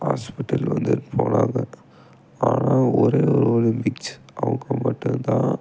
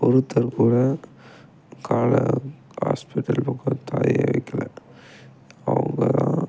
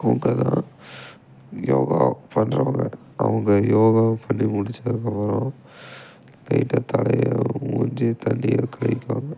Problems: background sounds at intervals